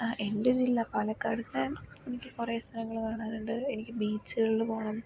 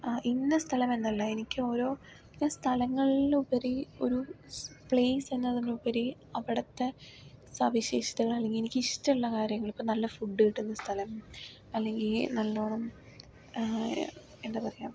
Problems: low volume